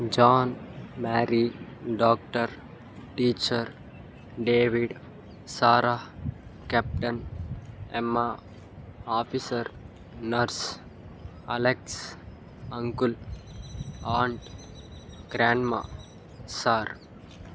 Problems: constant background noise